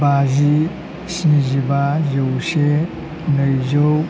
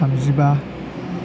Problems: constant background noise